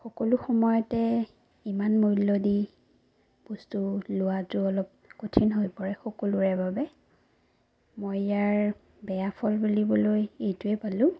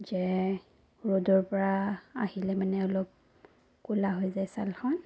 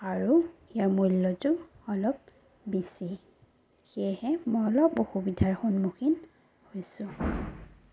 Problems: none marked